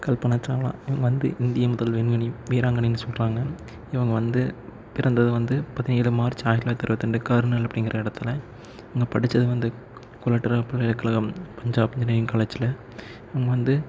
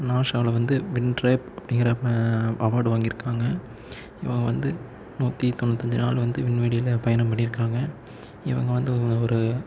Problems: low volume